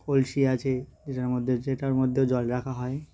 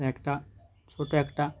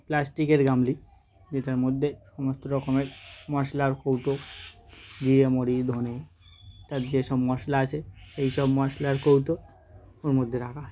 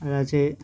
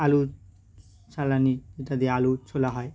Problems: background sounds at intervals